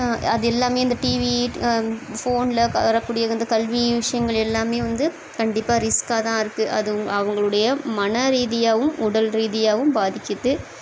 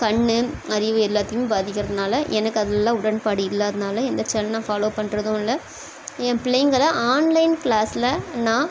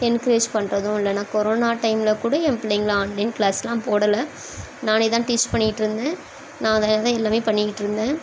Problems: constant background noise